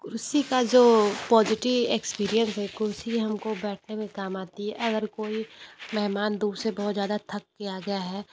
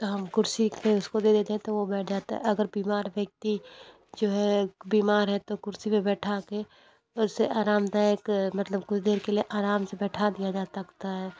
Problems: constant background noise